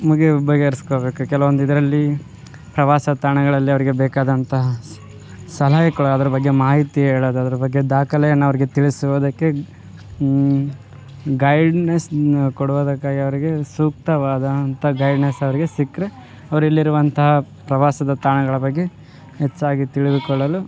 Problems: background sounds at intervals